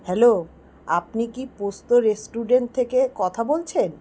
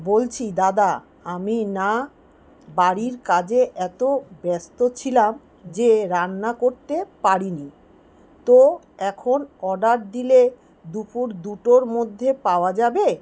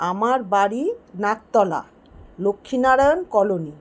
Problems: background sounds at intervals